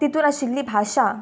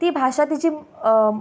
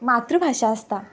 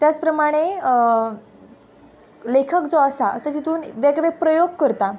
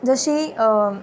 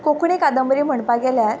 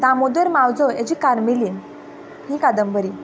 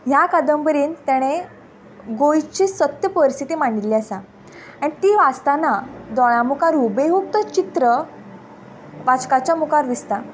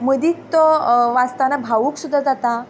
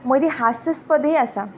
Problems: none marked